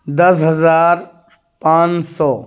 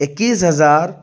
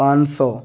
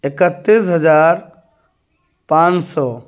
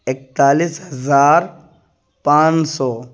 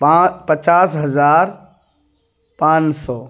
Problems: none marked